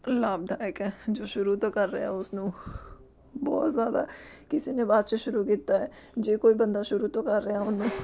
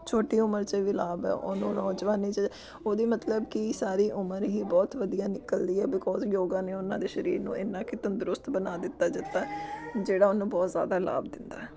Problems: background sounds at intervals, background conversations at intervals